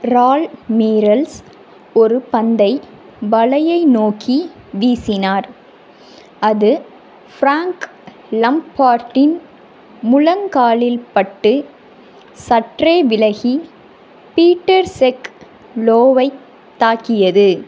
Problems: constant background noise